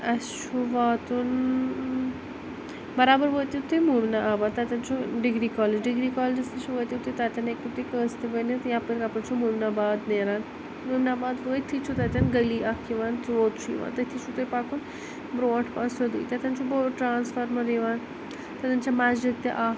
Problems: constant background noise